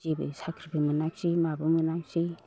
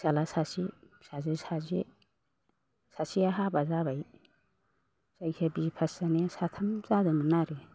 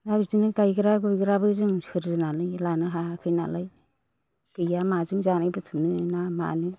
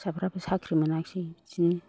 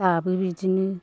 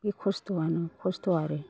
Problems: none marked